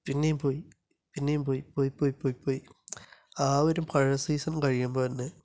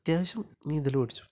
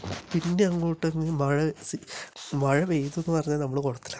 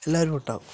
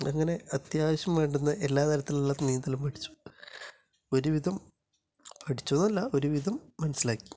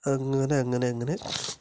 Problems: none marked